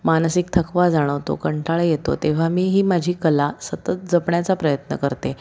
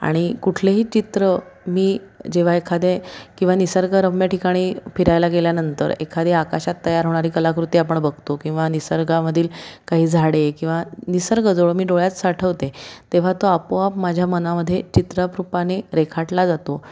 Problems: constant background noise, background conversations at intervals